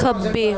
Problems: continuous background conversations